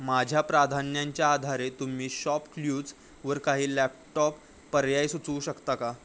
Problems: none marked